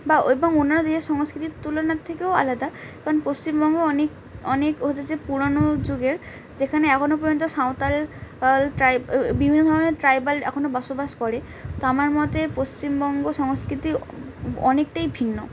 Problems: background conversations at intervals